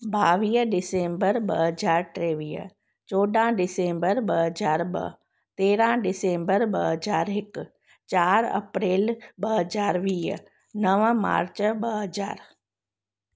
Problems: none marked